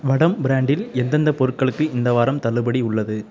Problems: background conversations at intervals